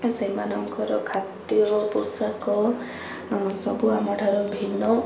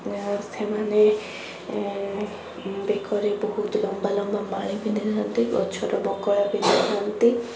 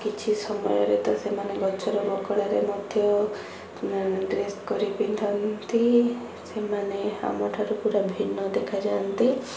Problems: constant background noise